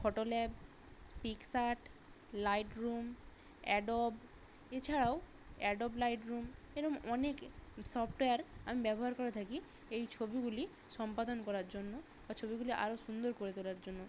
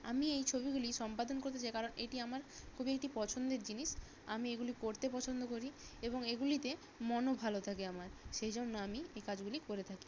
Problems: constant background noise